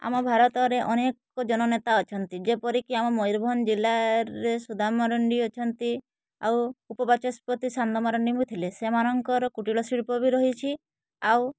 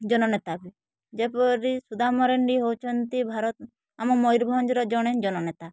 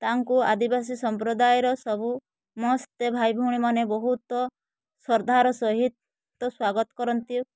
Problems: none marked